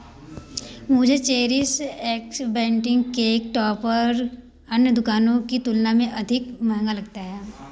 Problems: constant background noise